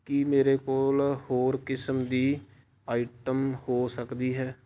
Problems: none marked